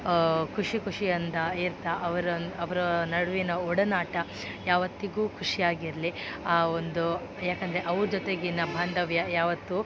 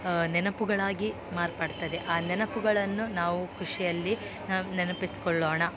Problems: background sounds at intervals